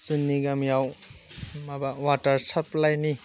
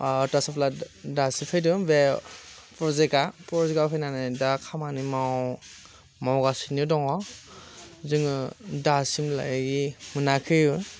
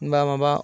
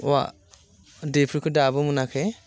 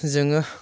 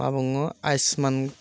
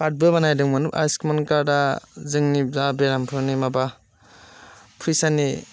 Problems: constant background noise